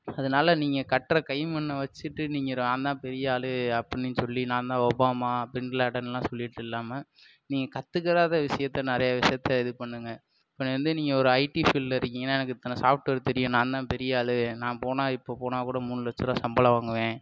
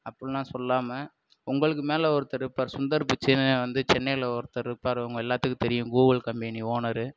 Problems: none marked